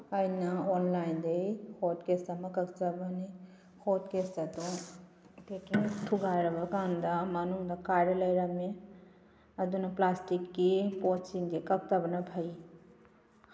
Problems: none marked